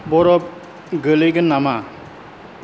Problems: none marked